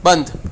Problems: none marked